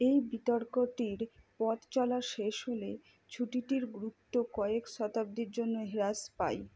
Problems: low volume